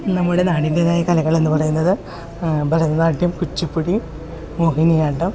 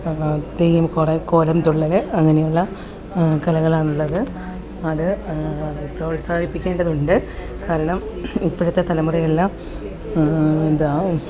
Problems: background sounds at intervals